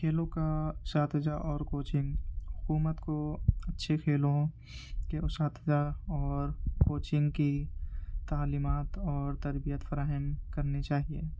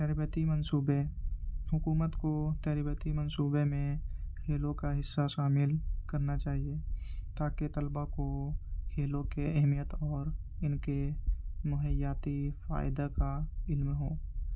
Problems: constant background noise, low volume